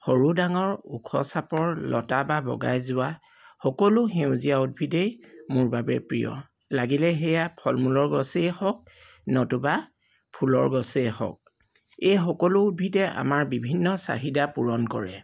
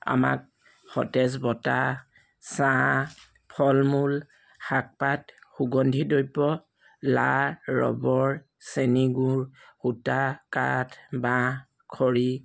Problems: background sounds at intervals